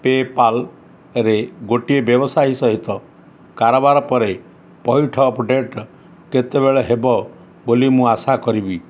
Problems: none marked